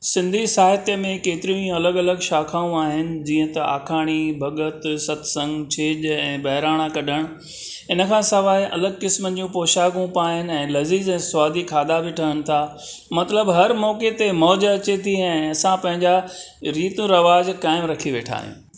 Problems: none marked